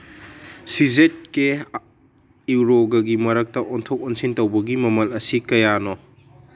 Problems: none marked